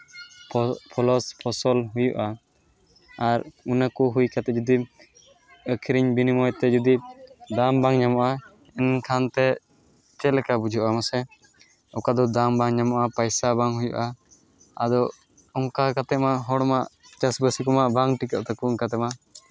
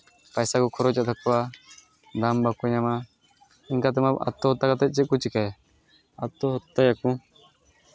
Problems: constant background noise